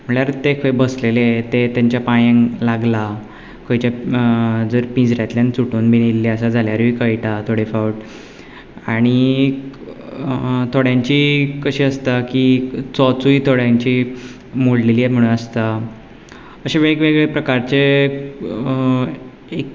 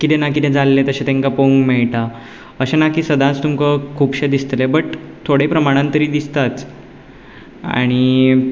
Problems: background sounds at intervals